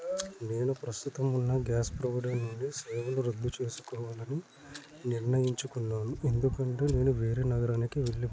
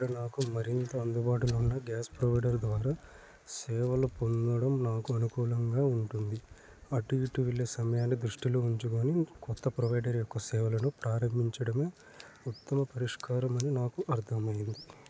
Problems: constant background noise, low volume